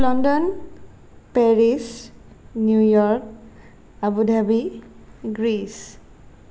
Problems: none marked